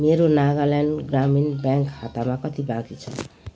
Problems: background sounds at intervals